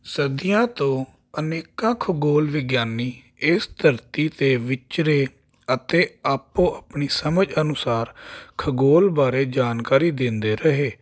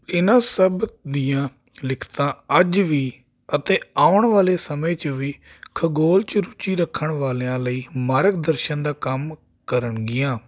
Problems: none marked